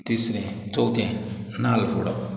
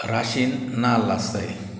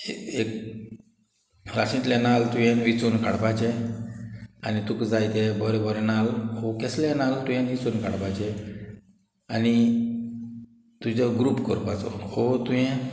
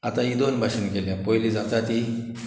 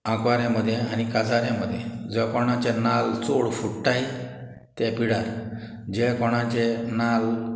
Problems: background sounds at intervals, background conversations at intervals